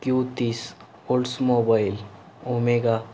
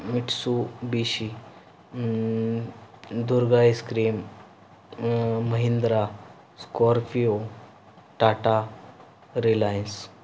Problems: background sounds at intervals